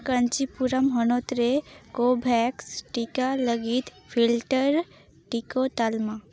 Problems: background sounds at intervals